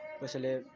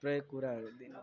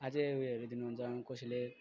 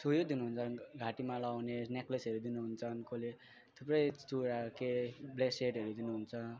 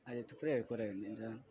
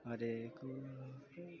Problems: none marked